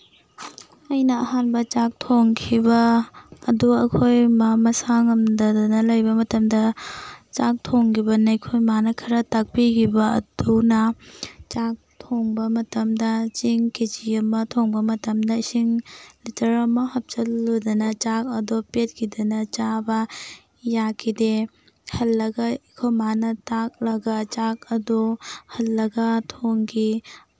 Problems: background sounds at intervals